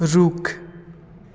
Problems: constant background noise